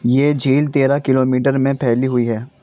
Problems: constant background noise